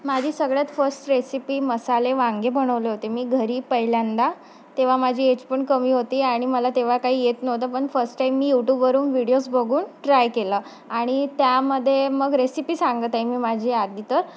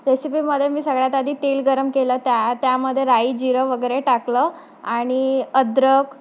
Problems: background sounds at intervals